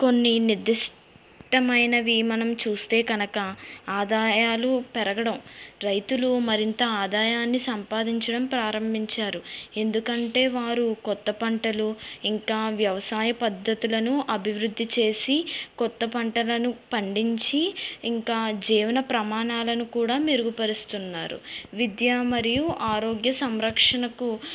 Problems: background sounds at intervals